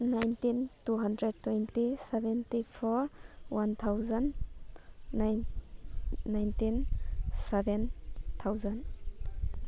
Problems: background sounds at intervals